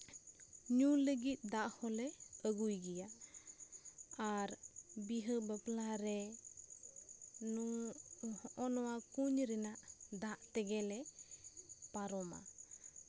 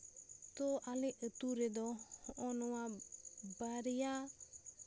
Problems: constant background noise